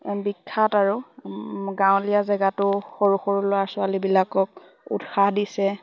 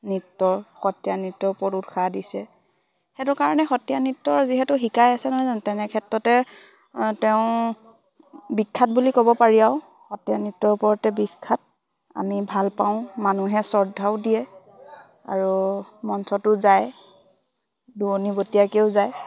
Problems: constant background noise, background conversations at intervals